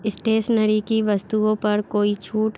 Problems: constant background noise